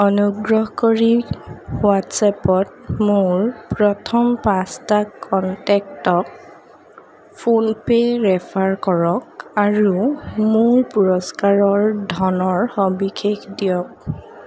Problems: constant background noise